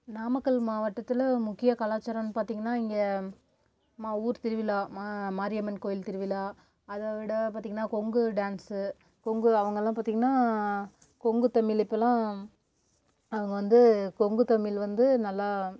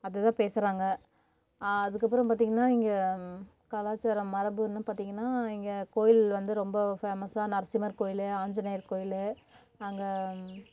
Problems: none marked